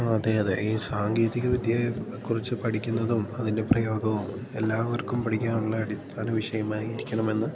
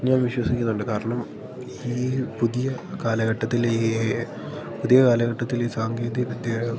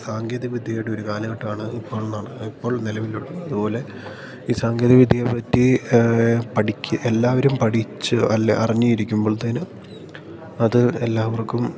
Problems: none marked